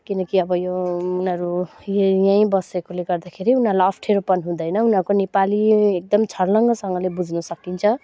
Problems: none marked